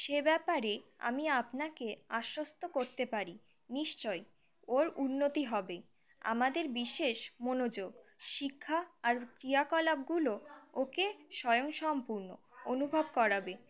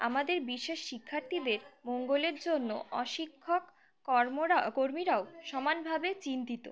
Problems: continuous background conversations